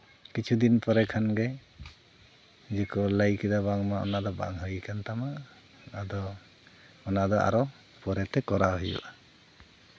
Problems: none marked